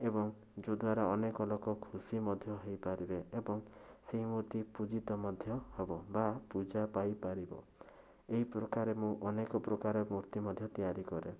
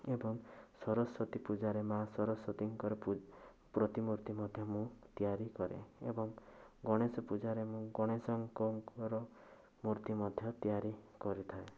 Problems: none marked